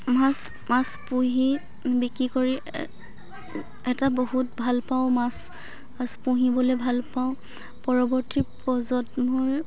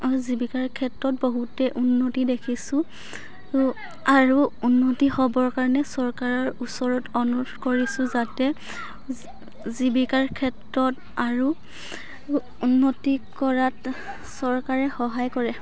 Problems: background sounds at intervals, continuous background conversations